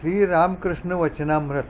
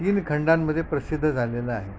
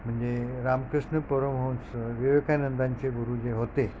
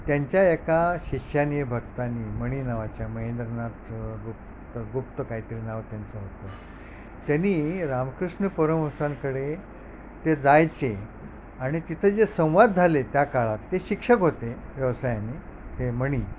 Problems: none marked